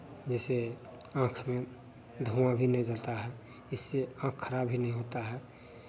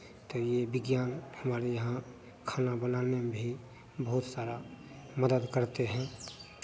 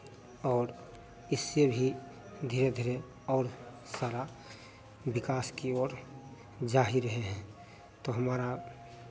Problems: constant background noise